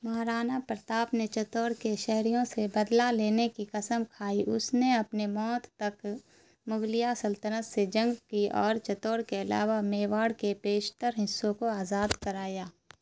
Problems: constant background noise